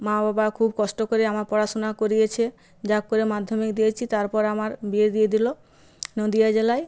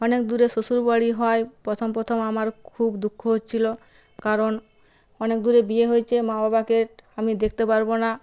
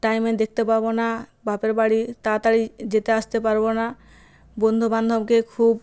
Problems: none marked